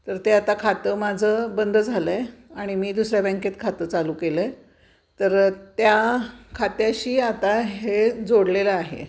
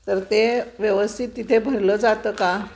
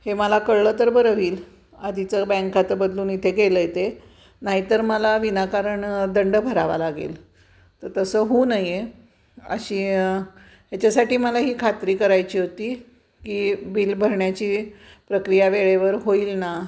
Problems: constant background noise, background conversations at intervals